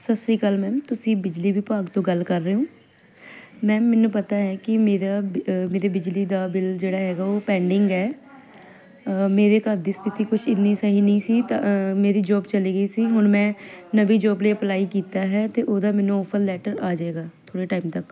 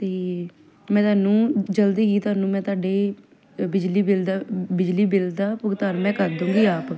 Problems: none marked